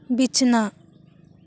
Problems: none marked